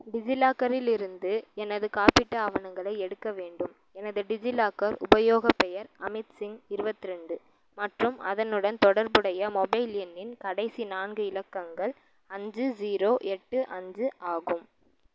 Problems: background sounds at intervals, low volume